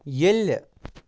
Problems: background sounds at intervals